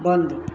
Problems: none marked